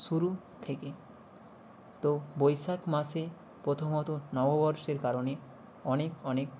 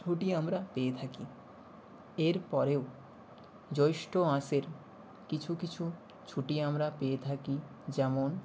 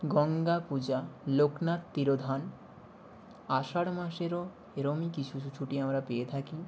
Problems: constant background noise